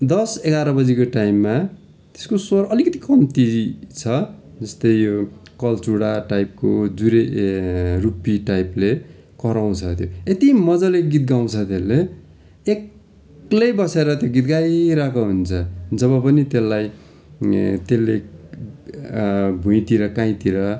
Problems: none marked